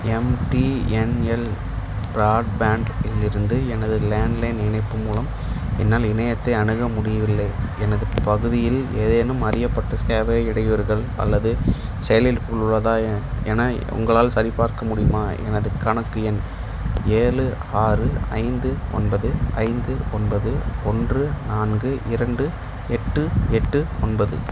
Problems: background conversations at intervals